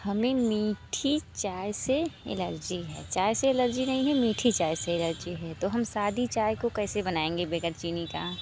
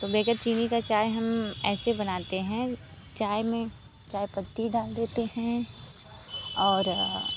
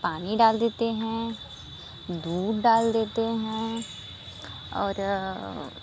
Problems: constant background noise